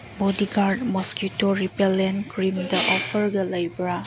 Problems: background sounds at intervals